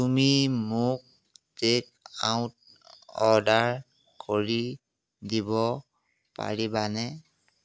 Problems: background sounds at intervals